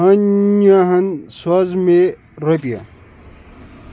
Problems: constant background noise